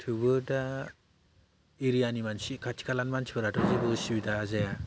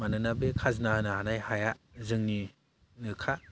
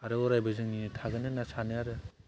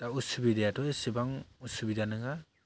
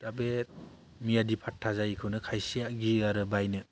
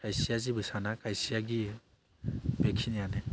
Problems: low volume